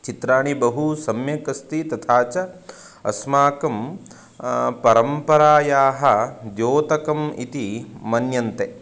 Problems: constant background noise